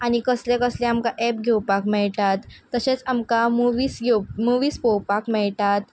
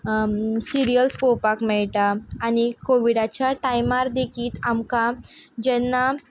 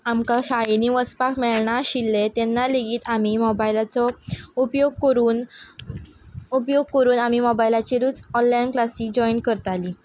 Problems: background sounds at intervals